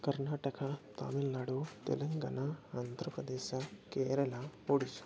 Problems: constant background noise, continuous background conversations, low volume